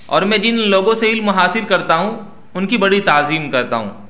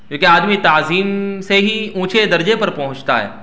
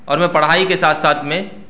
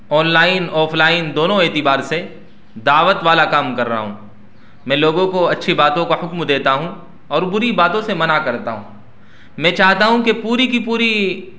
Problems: none marked